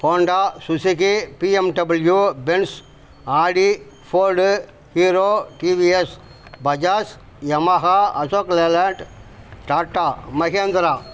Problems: constant background noise